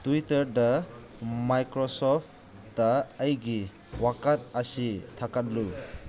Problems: constant background noise